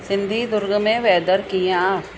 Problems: constant background noise